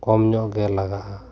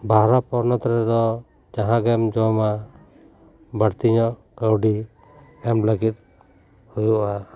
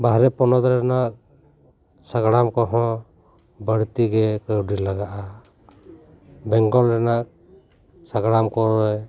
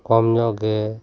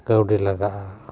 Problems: none marked